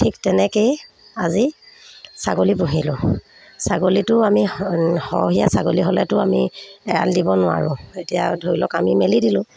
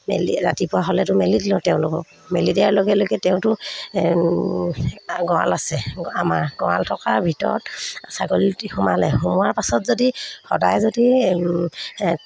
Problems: none marked